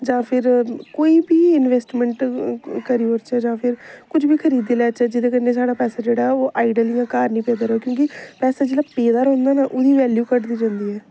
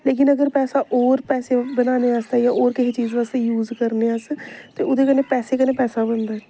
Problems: constant background noise